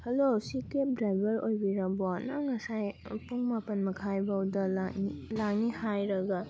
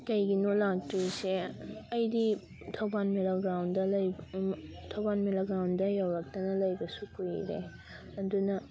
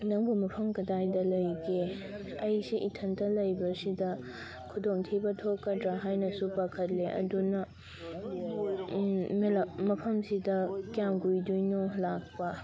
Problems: constant background noise, continuous background conversations